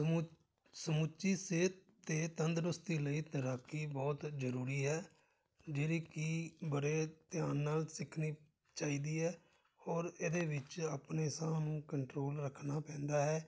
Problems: background conversations at intervals